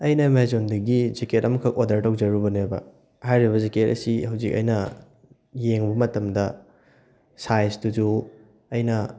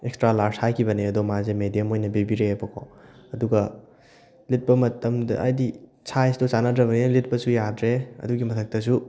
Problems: background sounds at intervals